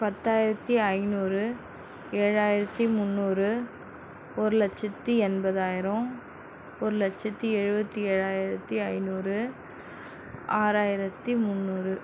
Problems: constant background noise